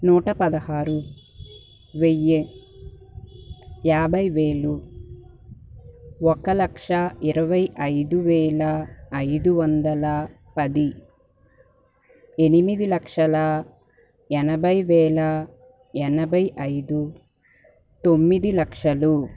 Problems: background sounds at intervals